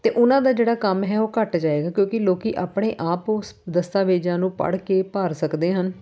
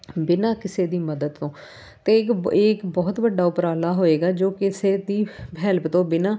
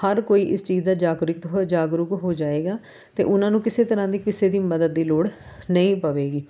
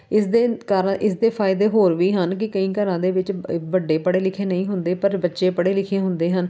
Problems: background sounds at intervals